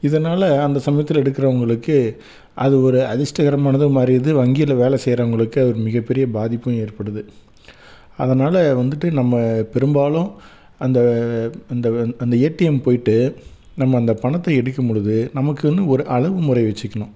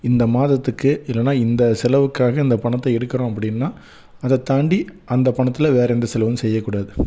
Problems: constant background noise